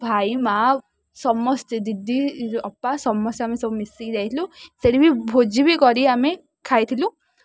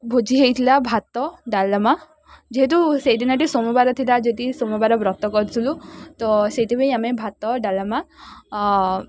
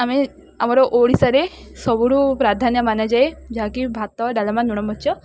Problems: none marked